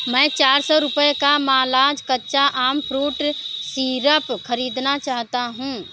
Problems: none marked